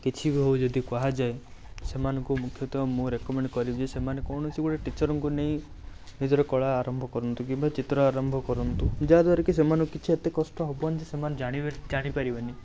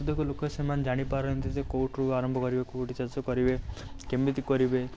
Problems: none marked